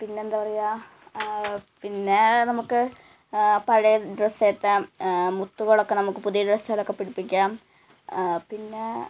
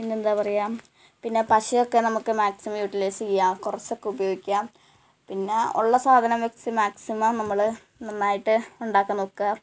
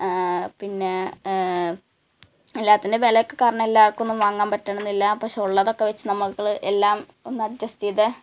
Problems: background sounds at intervals